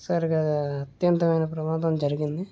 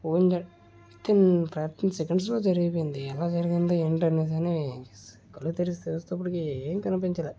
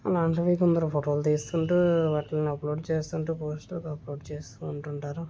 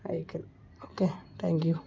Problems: constant background noise